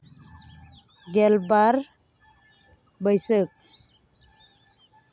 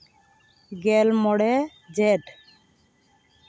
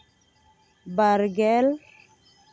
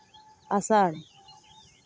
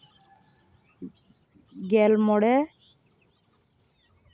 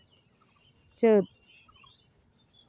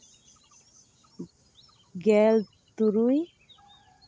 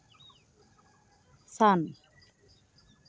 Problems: background sounds at intervals